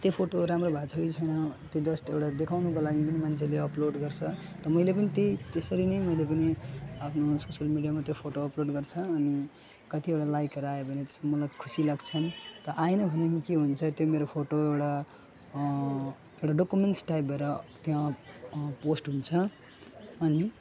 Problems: constant background noise, continuous background conversations, low volume